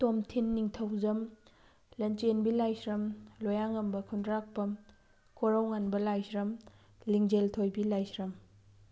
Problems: background sounds at intervals